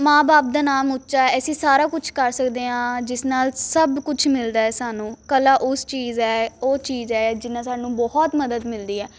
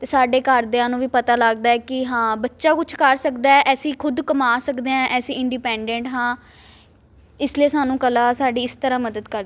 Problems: constant background noise